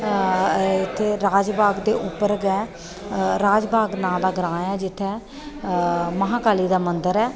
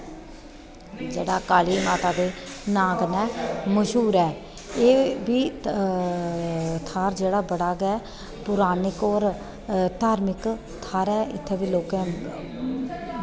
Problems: constant background noise